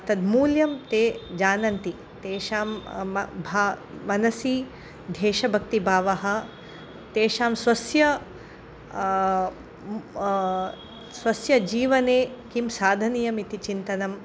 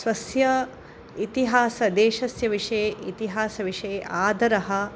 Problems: background sounds at intervals